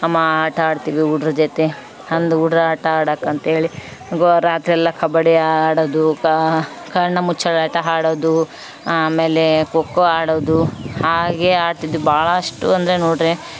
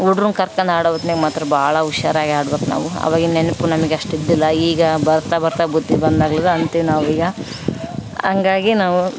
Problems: background sounds at intervals